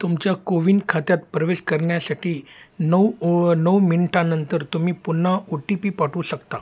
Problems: none marked